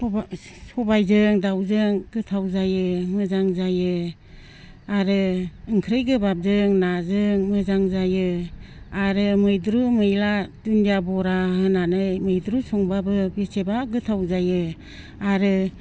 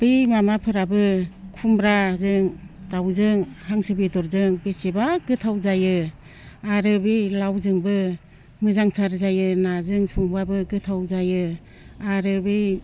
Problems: low volume